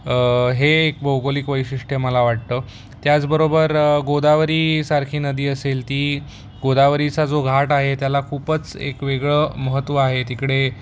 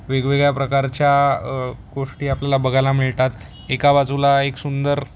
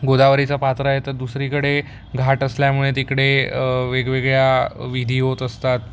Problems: none marked